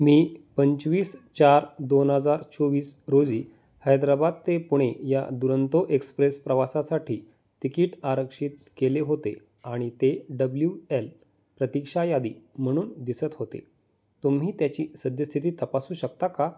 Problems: constant background noise